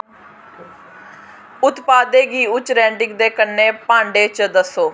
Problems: constant background noise